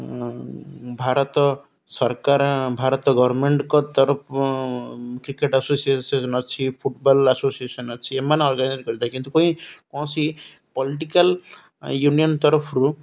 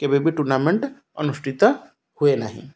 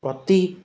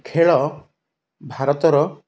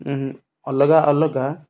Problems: none marked